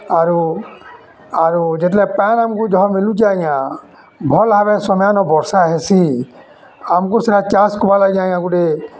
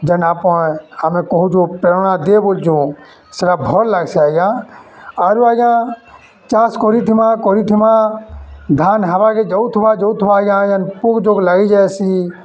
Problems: constant background noise, continuous background conversations